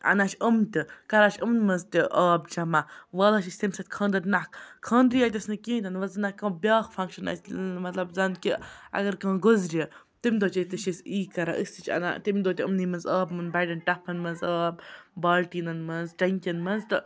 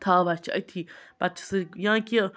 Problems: background sounds at intervals, background conversations at intervals